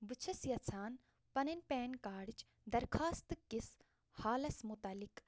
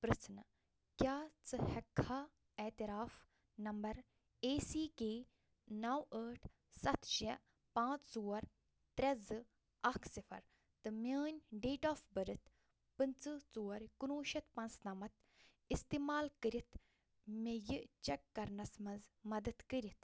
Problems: low volume